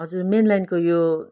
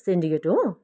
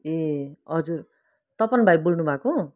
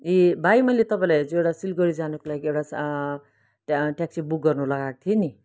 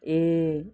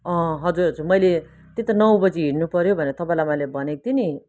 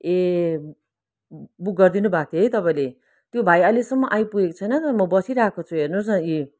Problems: none marked